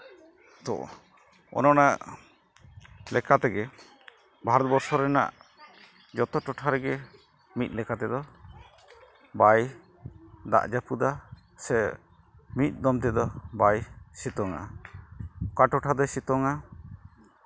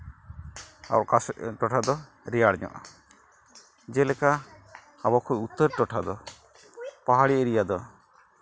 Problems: none marked